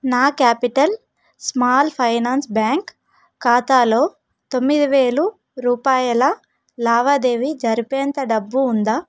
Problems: none marked